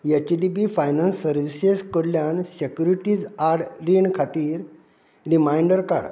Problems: none marked